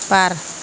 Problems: constant background noise